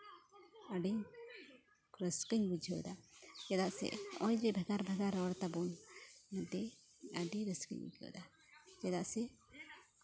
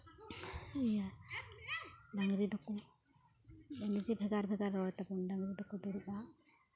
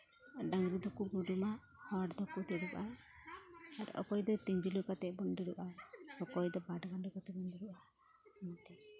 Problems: background conversations at intervals